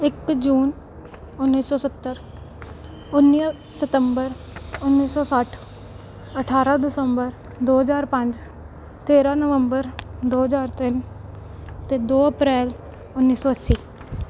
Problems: background sounds at intervals